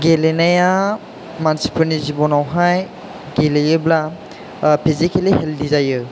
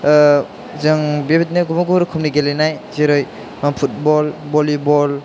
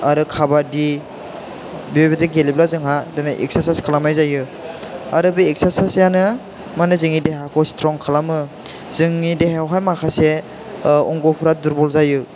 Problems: none marked